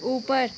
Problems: constant background noise